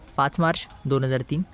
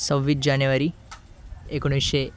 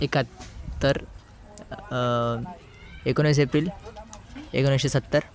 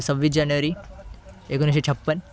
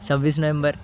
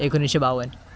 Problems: constant background noise, continuous background conversations